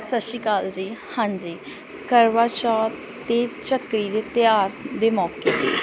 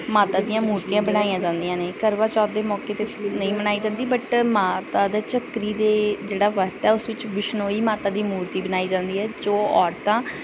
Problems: background sounds at intervals